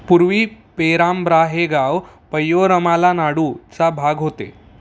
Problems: none marked